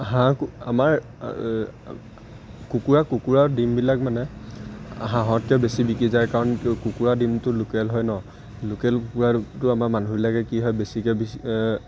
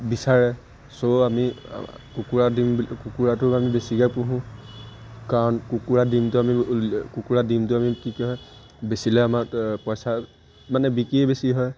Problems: constant background noise